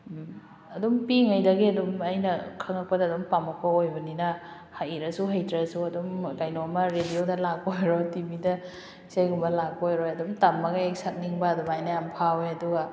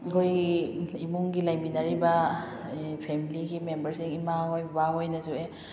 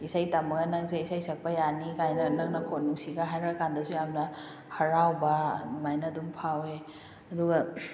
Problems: background sounds at intervals